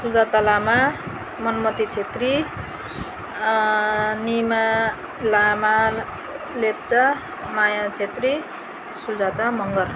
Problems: none marked